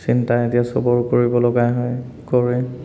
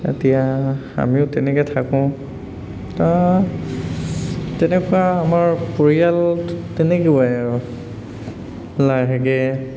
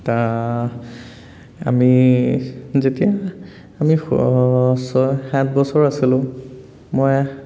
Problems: none marked